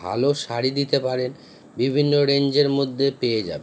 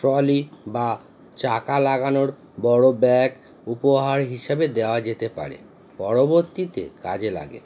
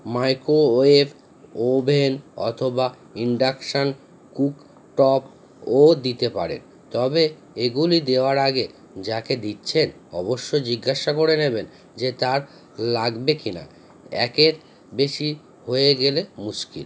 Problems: constant background noise